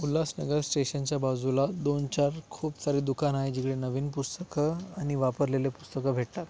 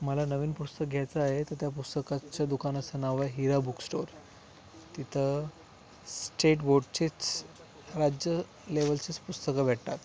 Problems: background sounds at intervals